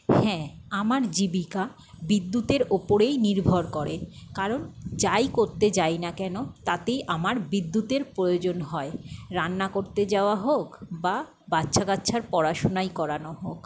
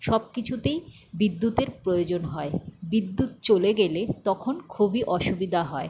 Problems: none marked